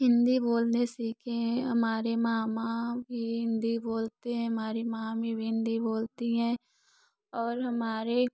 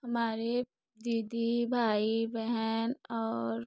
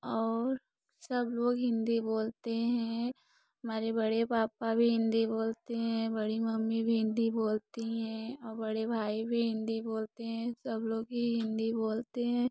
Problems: none marked